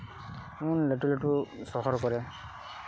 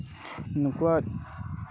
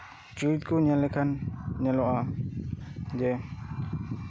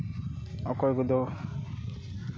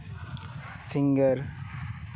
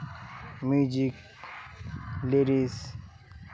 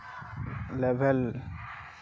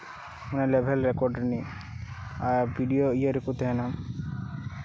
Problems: background conversations at intervals